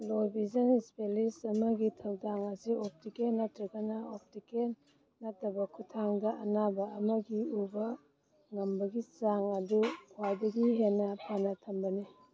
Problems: background sounds at intervals